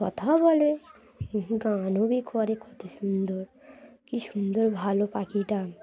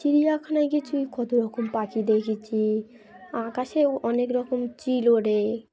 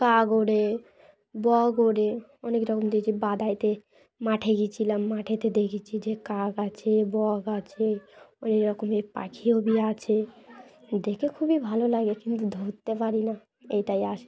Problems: background sounds at intervals, background conversations at intervals